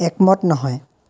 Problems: none marked